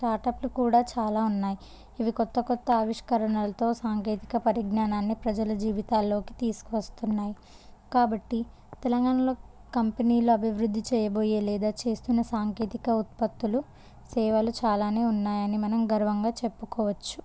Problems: low volume